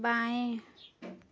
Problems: low volume